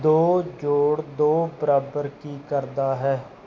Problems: background sounds at intervals